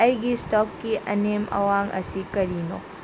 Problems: constant background noise